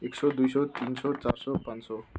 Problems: background sounds at intervals